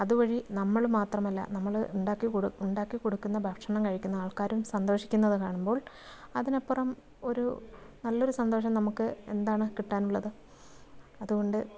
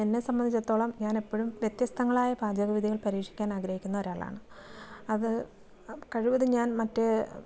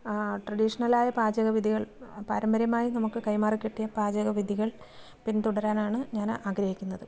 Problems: background conversations at intervals, low volume